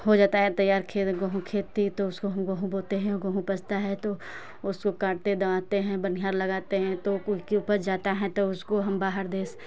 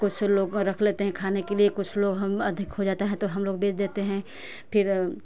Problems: constant background noise